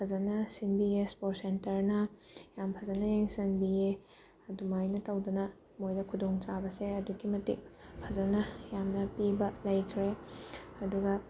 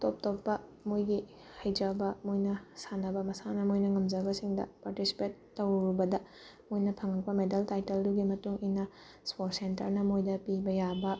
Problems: background sounds at intervals